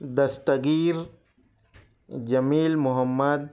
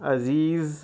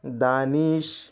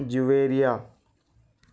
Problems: none marked